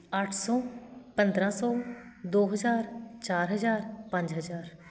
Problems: background sounds at intervals